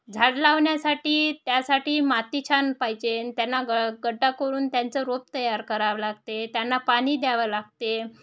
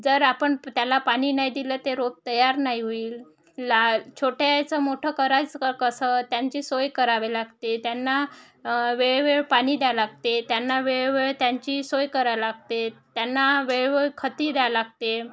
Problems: none marked